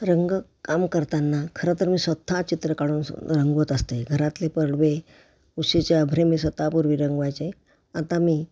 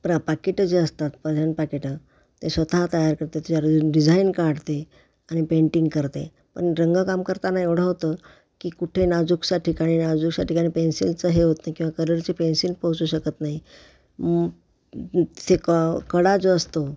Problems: background sounds at intervals